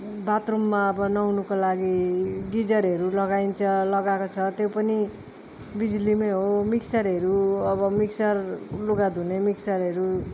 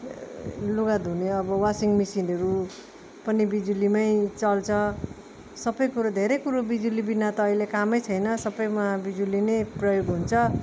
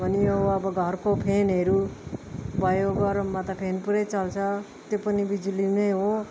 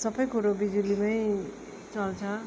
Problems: background sounds at intervals